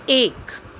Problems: none marked